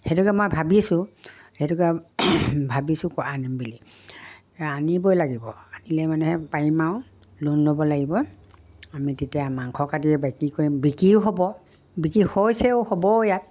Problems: background sounds at intervals